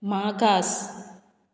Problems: none marked